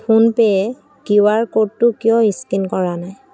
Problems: none marked